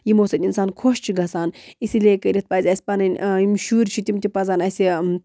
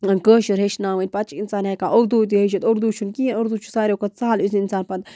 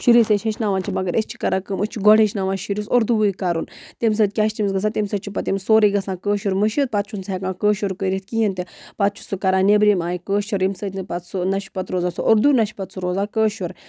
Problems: none marked